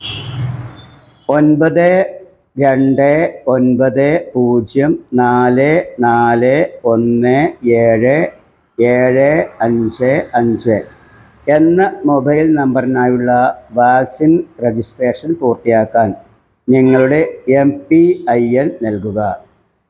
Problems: background sounds at intervals